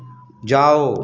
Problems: background sounds at intervals